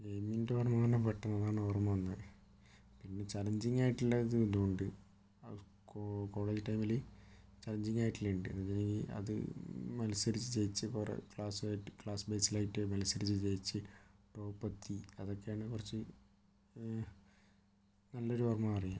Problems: low volume